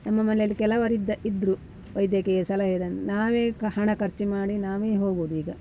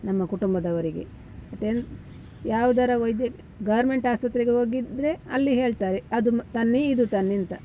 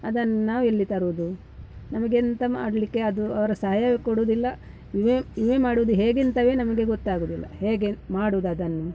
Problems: background sounds at intervals